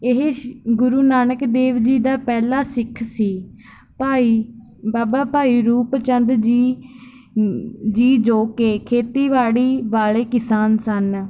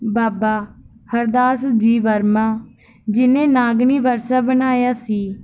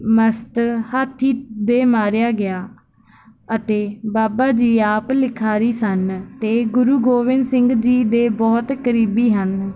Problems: none marked